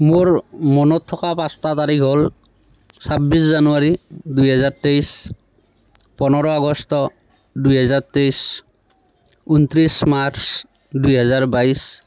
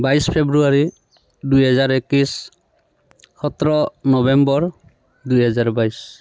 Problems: constant background noise